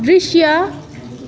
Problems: continuous background conversations